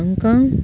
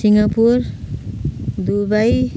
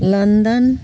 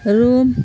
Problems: constant background noise